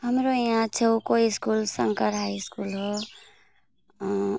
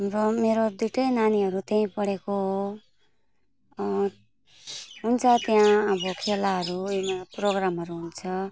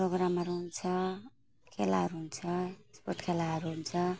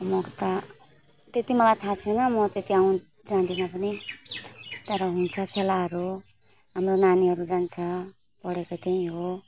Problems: constant background noise, low volume